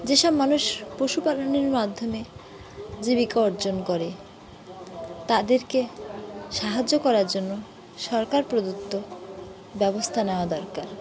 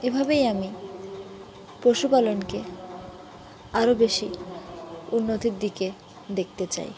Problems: constant background noise, continuous background conversations